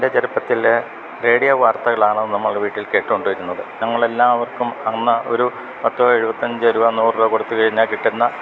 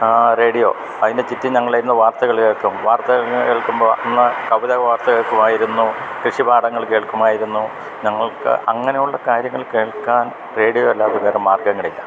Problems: none marked